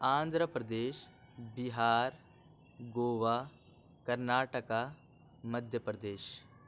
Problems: none marked